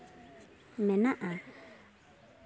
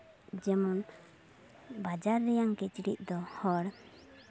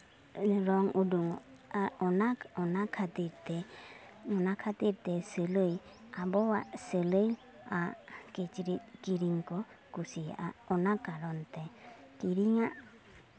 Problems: background sounds at intervals